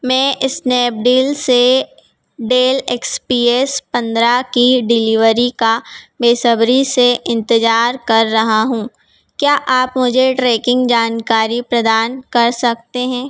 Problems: none marked